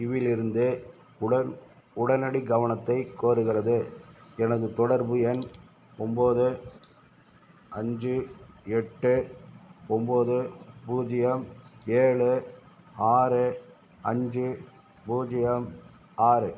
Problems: none marked